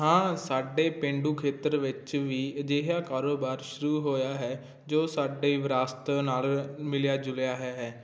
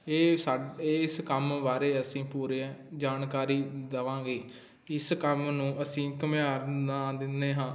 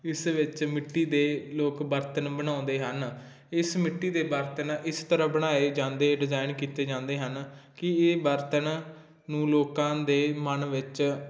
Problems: constant background noise